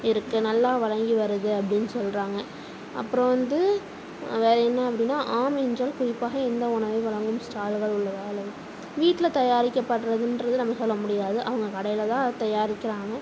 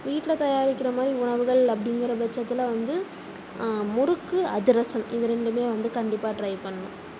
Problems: none marked